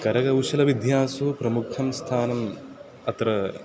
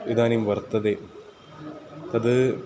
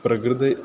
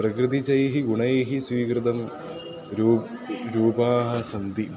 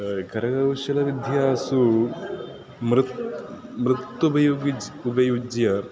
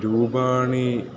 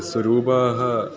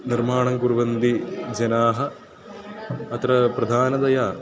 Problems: constant background noise, continuous background conversations